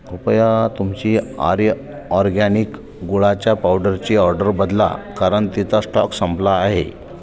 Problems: constant background noise